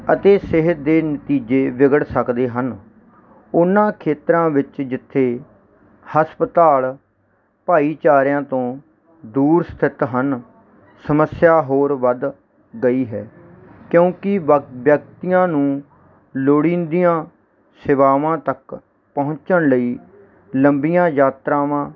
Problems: none marked